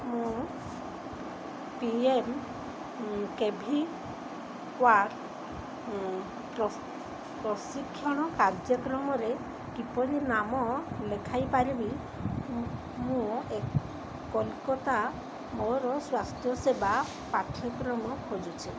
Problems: constant background noise